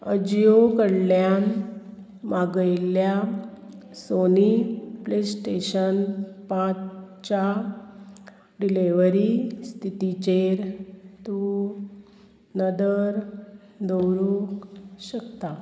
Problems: constant background noise